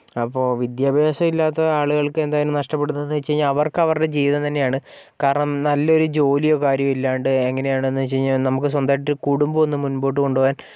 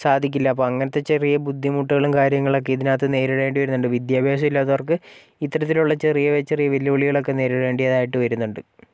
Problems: background sounds at intervals